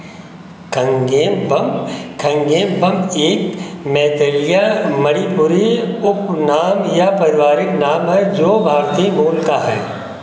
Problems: none marked